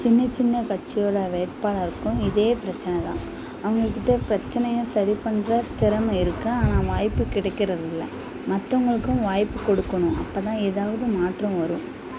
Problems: constant background noise, background conversations at intervals